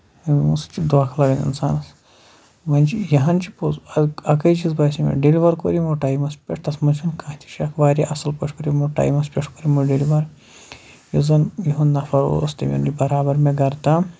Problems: background sounds at intervals